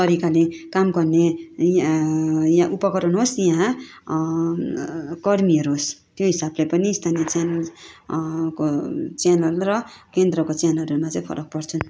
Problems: none marked